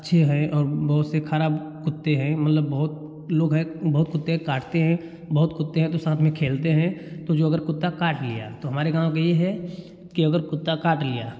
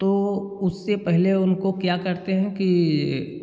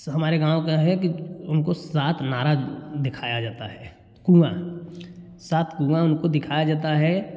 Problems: none marked